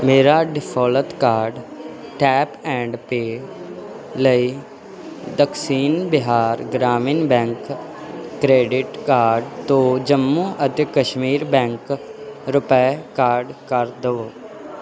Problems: constant background noise